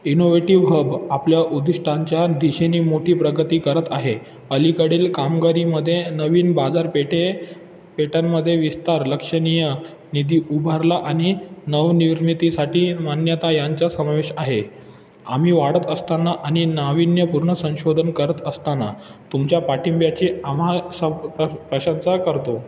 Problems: background sounds at intervals